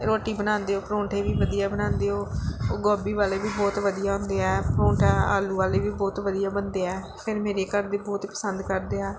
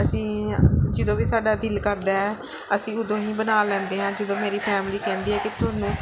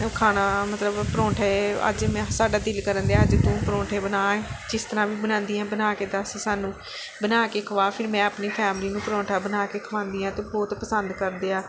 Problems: background sounds at intervals